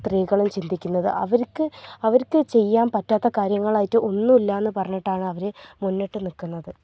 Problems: low volume